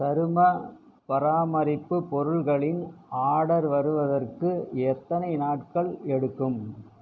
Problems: constant background noise